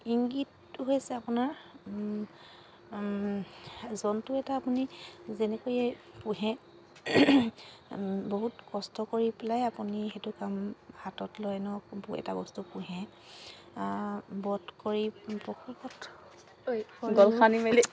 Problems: constant background noise